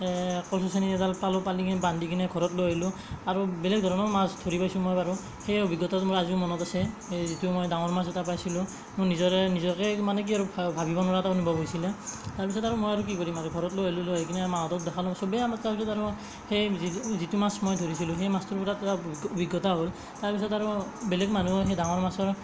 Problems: none marked